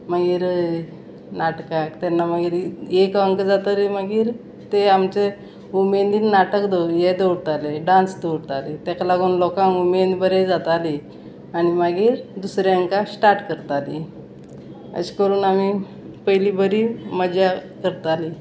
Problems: none marked